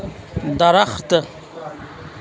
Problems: constant background noise, background conversations at intervals